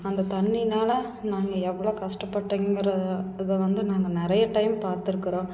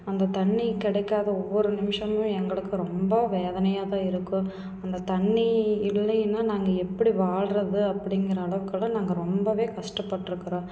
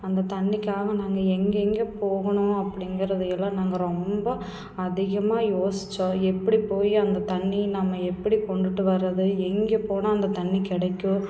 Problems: none marked